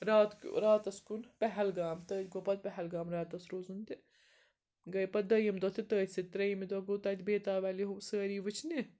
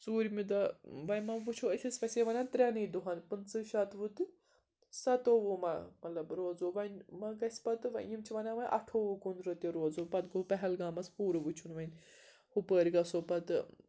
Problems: constant background noise